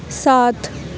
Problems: none marked